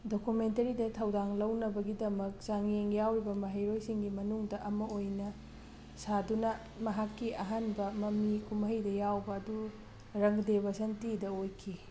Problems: background sounds at intervals